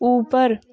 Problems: background sounds at intervals, continuous background conversations